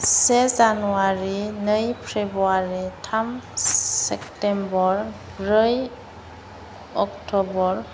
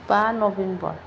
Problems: constant background noise